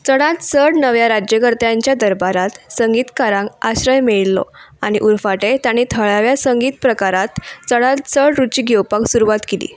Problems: background sounds at intervals